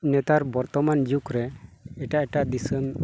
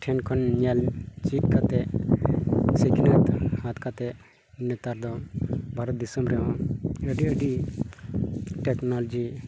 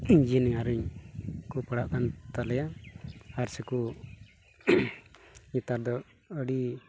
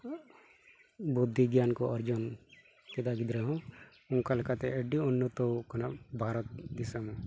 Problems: constant background noise